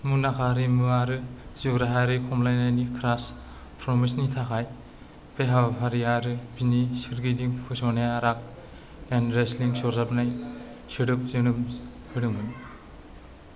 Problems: low volume